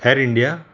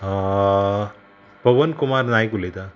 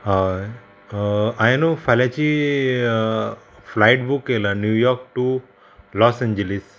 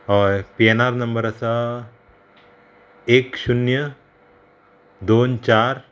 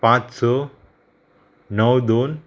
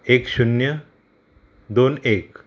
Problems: constant background noise